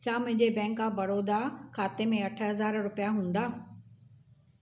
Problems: none marked